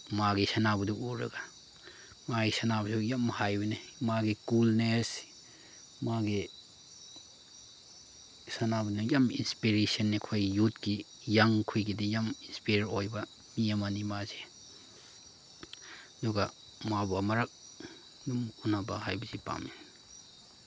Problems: background sounds at intervals